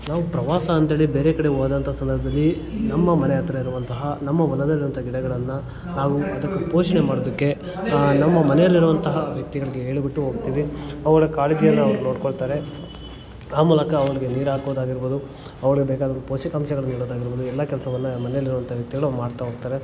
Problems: background sounds at intervals, continuous background conversations